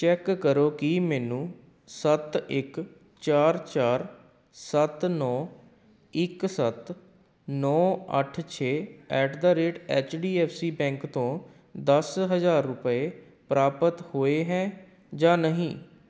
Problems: background conversations at intervals